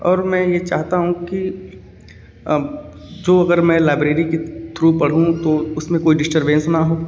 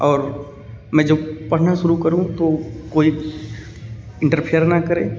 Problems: background sounds at intervals